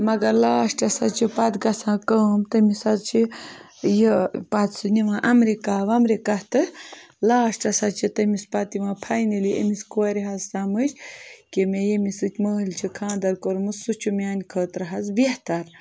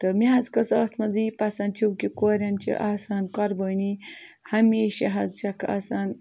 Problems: none marked